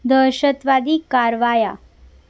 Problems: constant background noise